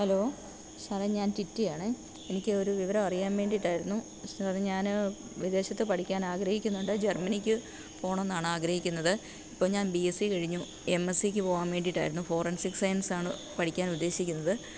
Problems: low volume